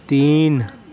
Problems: none marked